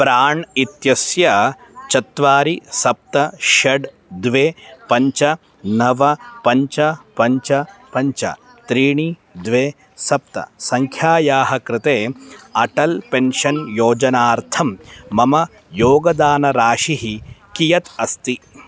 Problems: constant background noise, background conversations at intervals